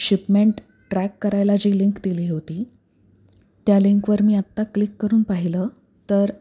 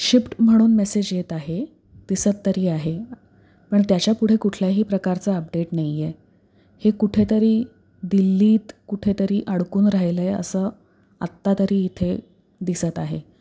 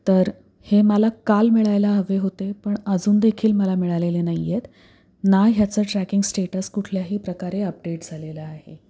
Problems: background sounds at intervals